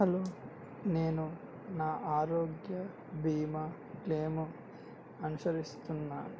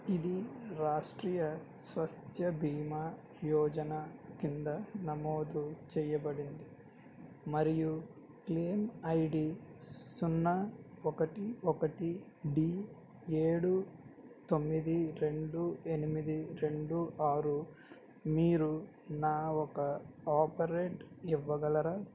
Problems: low volume